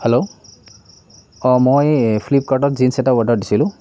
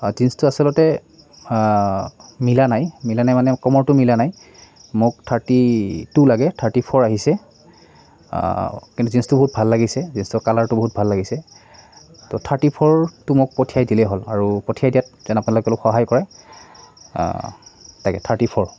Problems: none marked